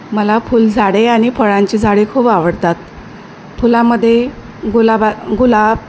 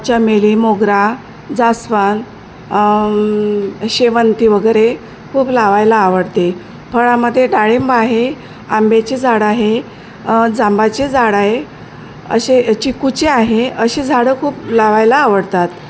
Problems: constant background noise